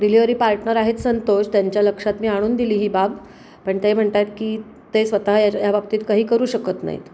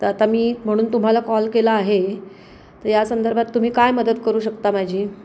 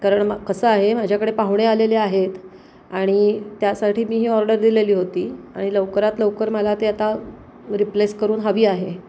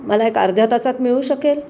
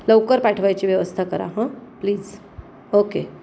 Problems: constant background noise